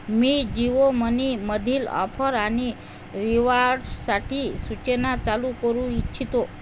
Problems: constant background noise